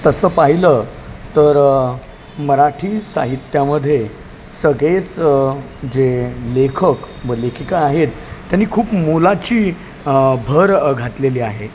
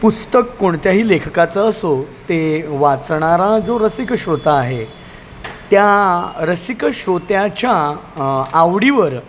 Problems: none marked